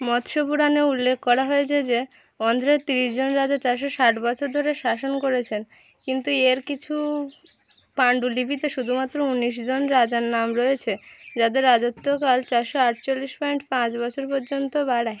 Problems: constant background noise